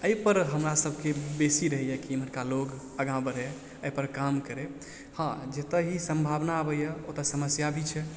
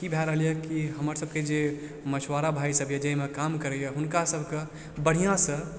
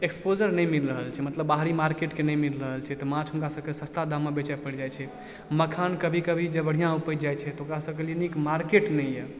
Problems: low volume